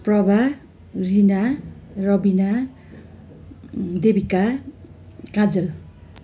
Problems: none marked